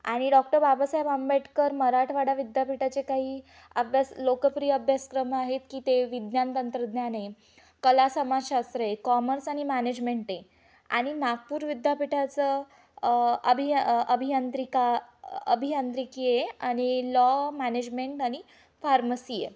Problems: constant background noise